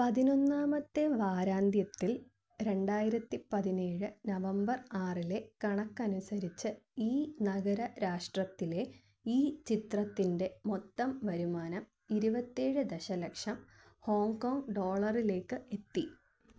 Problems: low volume